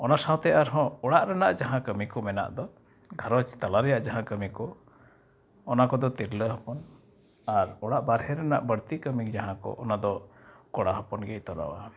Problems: background sounds at intervals